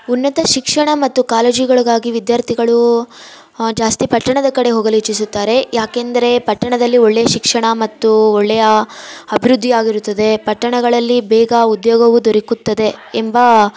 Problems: background sounds at intervals